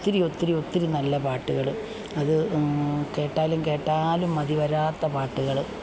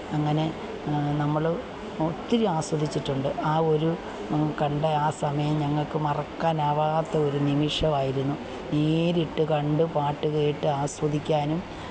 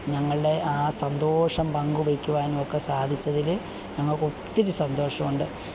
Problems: none marked